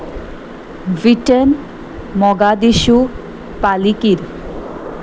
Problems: none marked